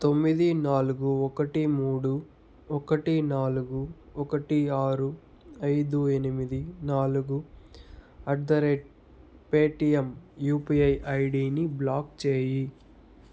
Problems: none marked